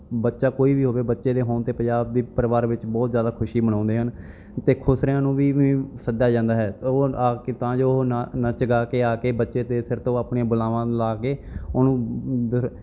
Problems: none marked